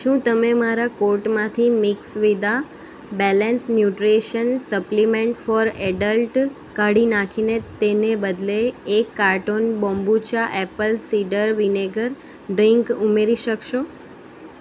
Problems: none marked